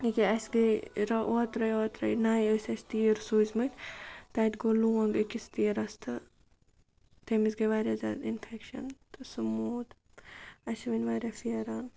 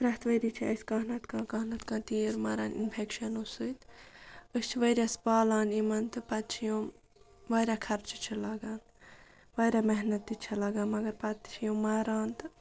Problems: background sounds at intervals, background conversations at intervals